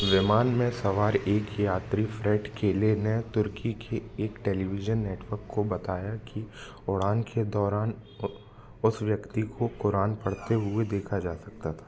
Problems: constant background noise